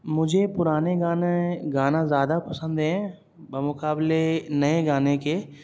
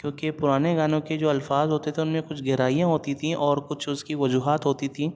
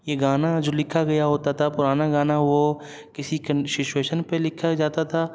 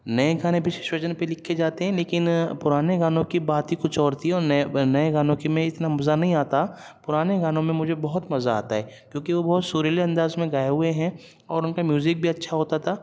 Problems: none marked